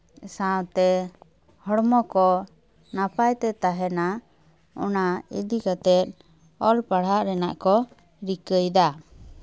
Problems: none marked